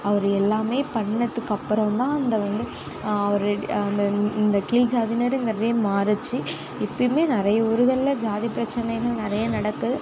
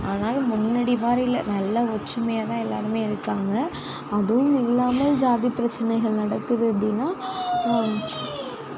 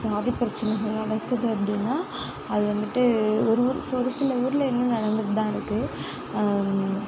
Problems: continuous background conversations